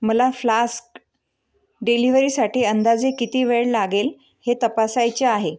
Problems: none marked